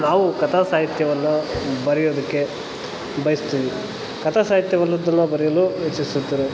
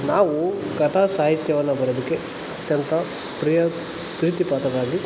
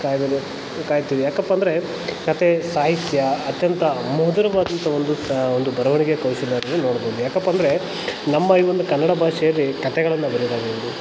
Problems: constant background noise